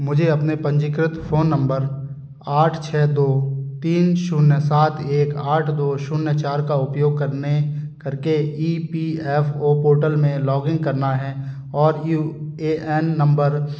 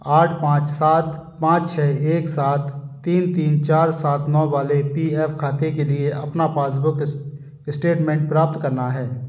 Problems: background sounds at intervals